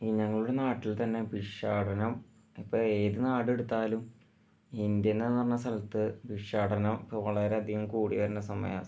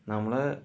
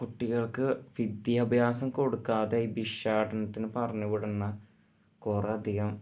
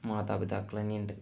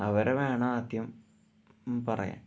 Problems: low volume